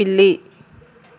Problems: constant background noise